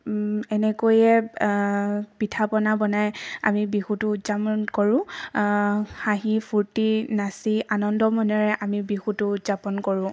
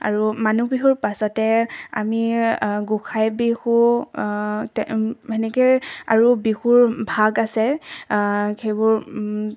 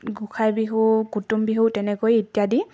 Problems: background sounds at intervals